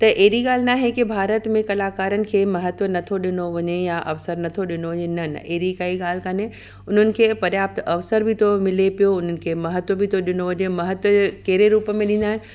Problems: background sounds at intervals, echo